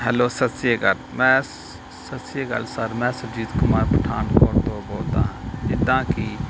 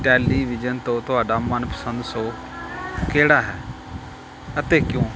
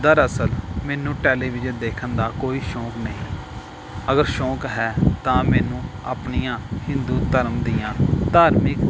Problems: background sounds at intervals